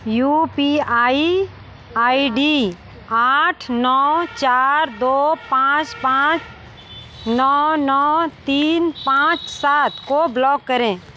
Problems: constant background noise